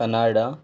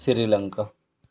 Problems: none marked